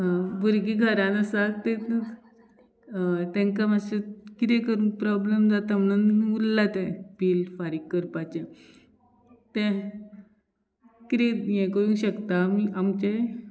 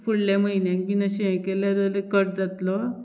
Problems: none marked